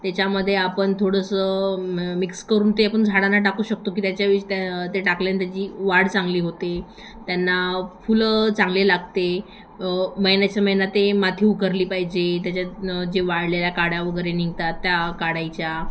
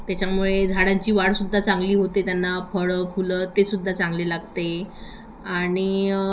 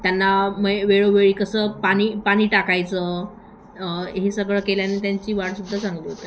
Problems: constant background noise, echo